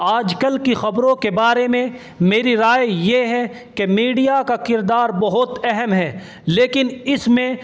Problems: constant background noise